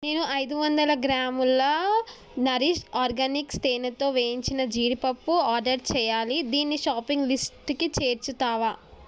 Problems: none marked